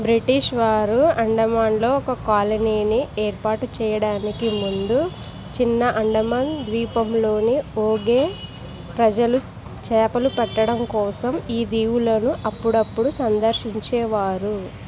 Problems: constant background noise